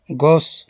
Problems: none marked